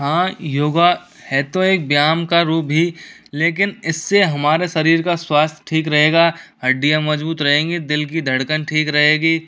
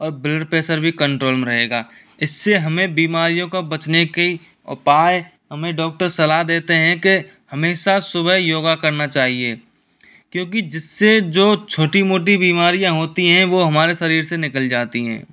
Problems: background sounds at intervals